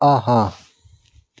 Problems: background sounds at intervals